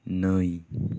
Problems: low volume